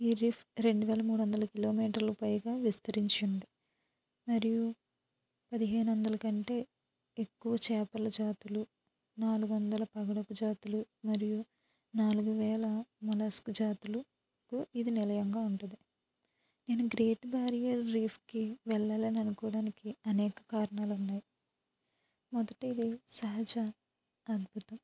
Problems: low volume